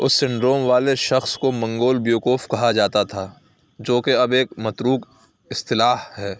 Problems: background sounds at intervals